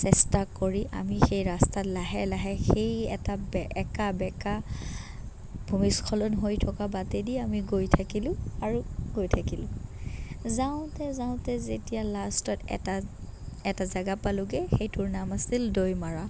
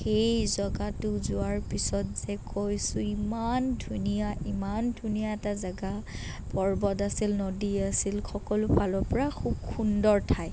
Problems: none marked